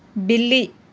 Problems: none marked